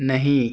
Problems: none marked